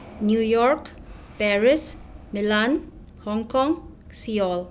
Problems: constant background noise